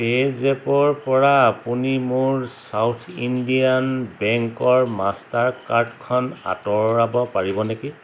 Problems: none marked